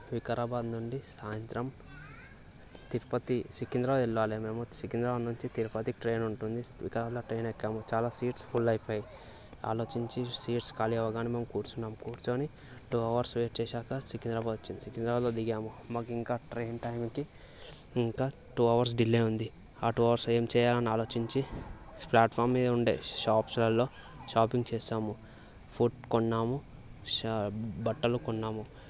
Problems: constant background noise, background conversations at intervals